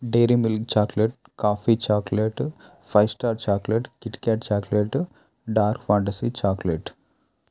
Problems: none marked